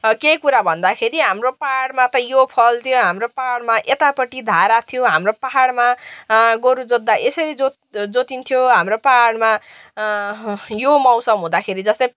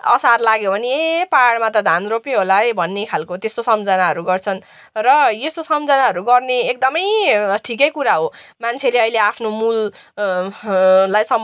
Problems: none marked